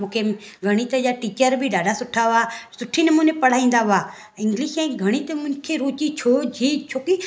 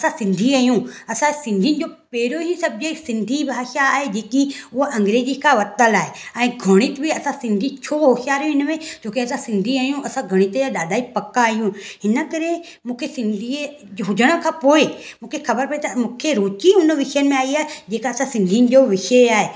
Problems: none marked